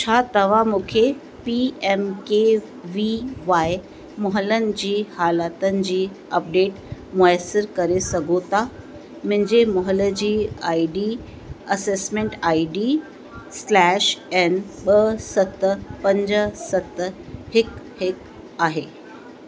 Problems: constant background noise